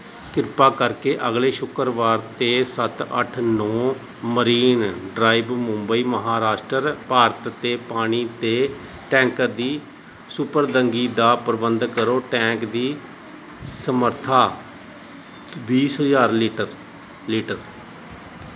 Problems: none marked